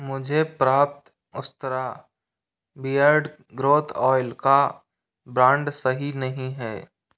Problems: background sounds at intervals